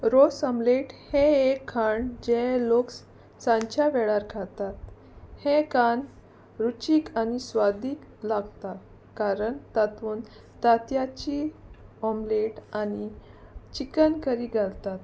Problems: none marked